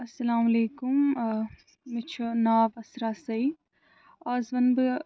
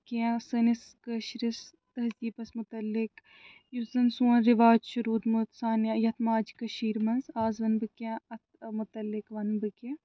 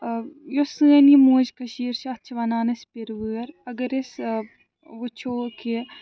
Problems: none marked